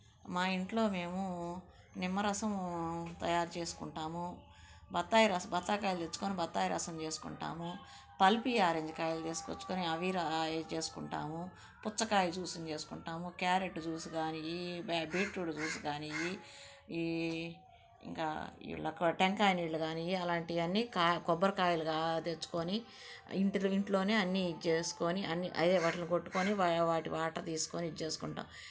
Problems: background sounds at intervals